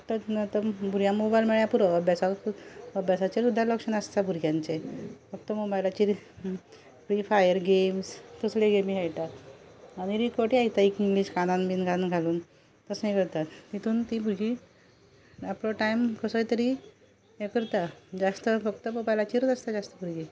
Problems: none marked